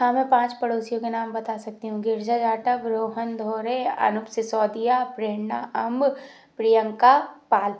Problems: none marked